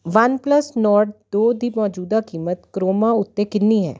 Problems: constant background noise